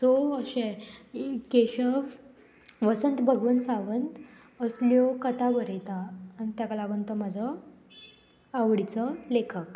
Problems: constant background noise